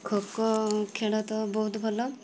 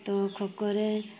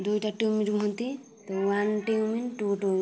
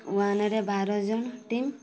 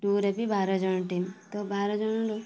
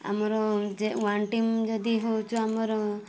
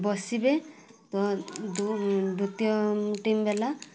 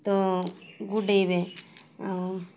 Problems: constant background noise, continuous background conversations